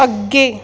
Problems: background sounds at intervals